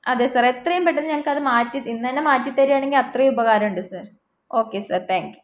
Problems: none marked